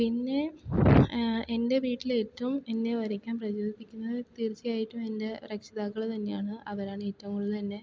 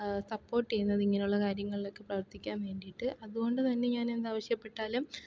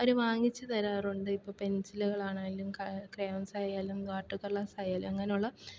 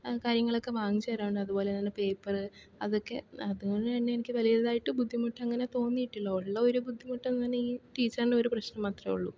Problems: low volume